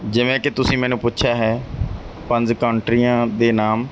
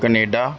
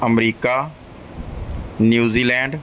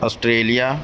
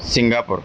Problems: background sounds at intervals